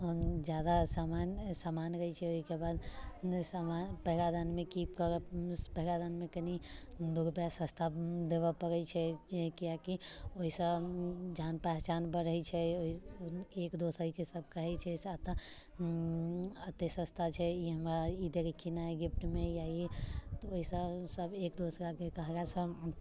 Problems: none marked